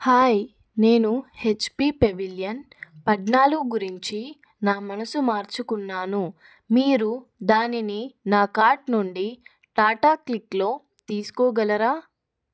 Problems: none marked